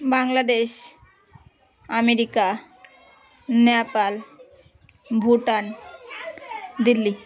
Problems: none marked